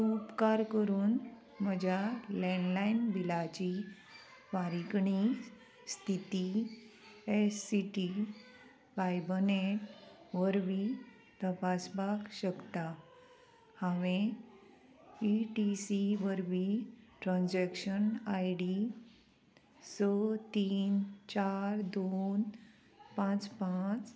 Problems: constant background noise